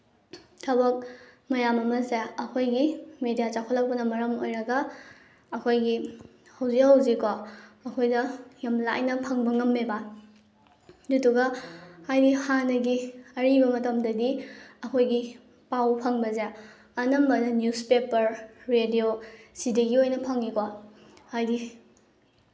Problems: background sounds at intervals